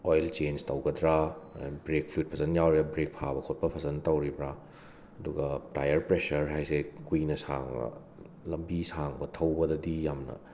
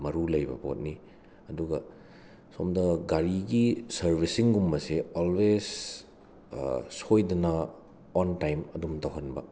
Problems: constant background noise